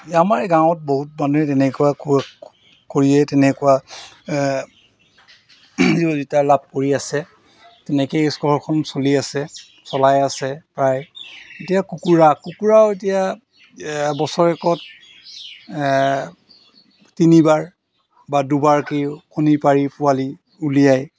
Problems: background sounds at intervals